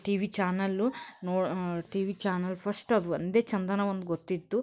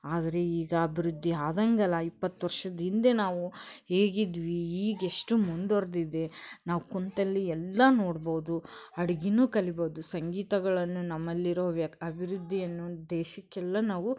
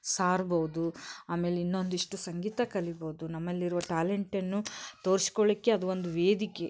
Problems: background sounds at intervals